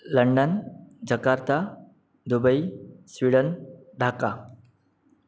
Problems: background sounds at intervals